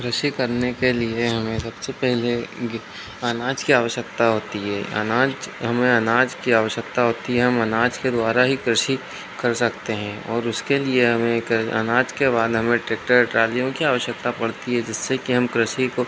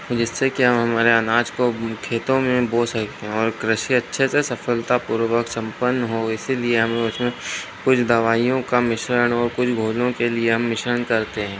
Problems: constant background noise